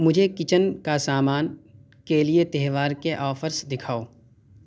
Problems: none marked